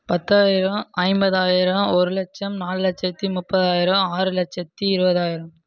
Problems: none marked